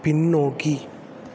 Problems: none marked